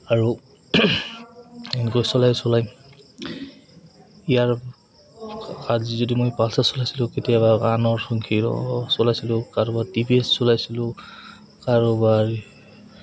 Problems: background sounds at intervals, background conversations at intervals